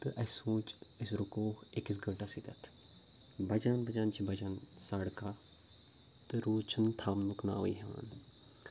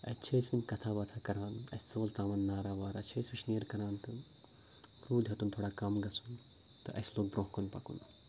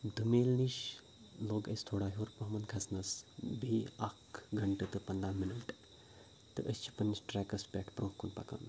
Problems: none marked